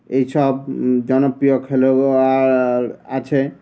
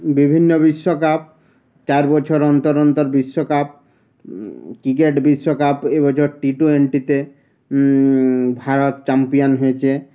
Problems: constant background noise